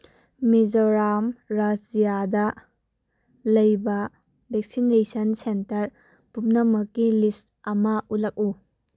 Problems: none marked